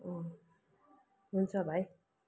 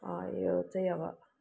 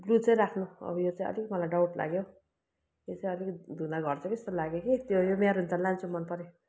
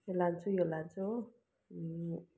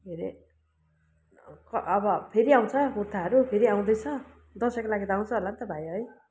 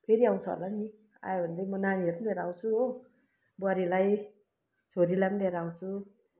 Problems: constant background noise